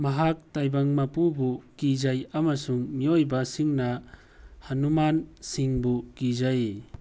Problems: background sounds at intervals